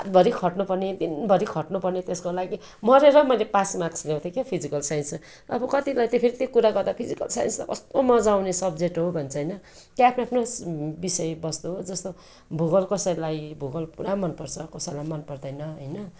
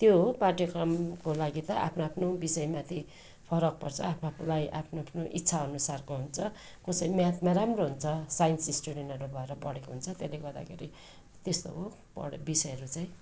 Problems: continuous background conversations